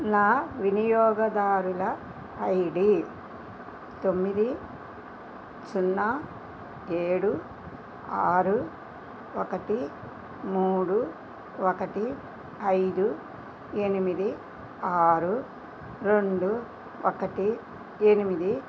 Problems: constant background noise